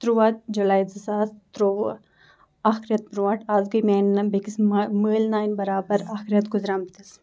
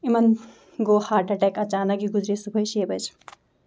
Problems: background sounds at intervals